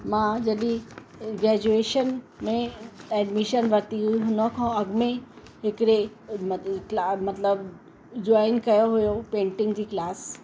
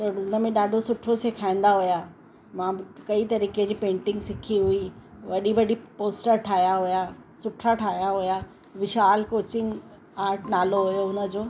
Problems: constant background noise